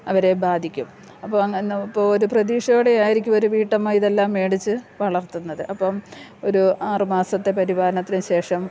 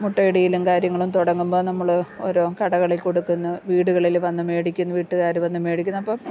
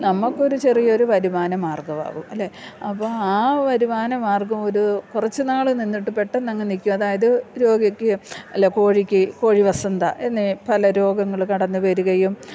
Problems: low volume